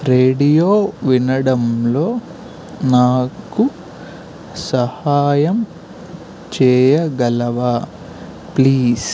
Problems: constant background noise